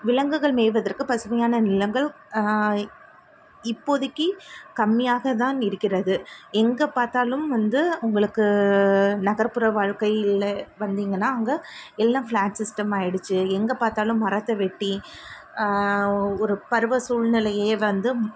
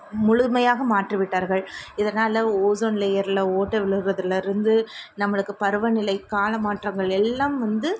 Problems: constant background noise